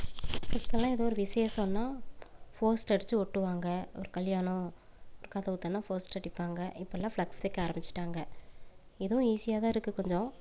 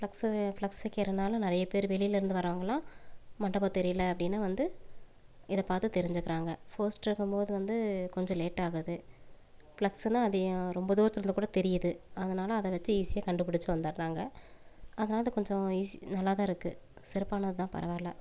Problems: low volume